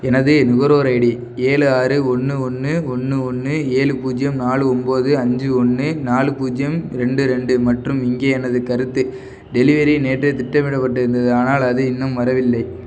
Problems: none marked